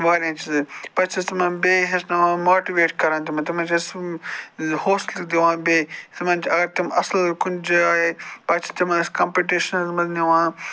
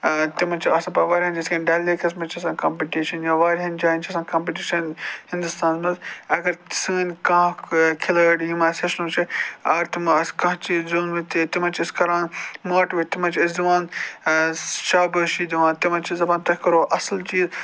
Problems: constant background noise